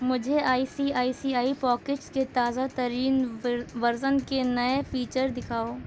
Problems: constant background noise